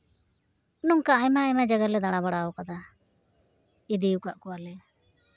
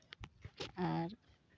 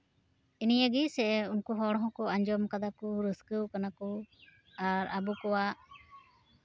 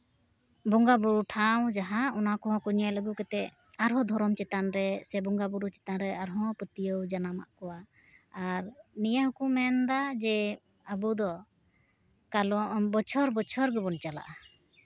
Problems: background sounds at intervals, background conversations at intervals